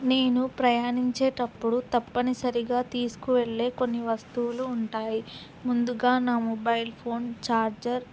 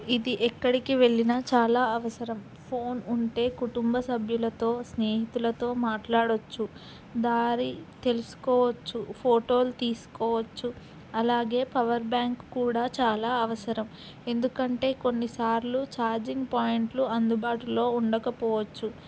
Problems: constant background noise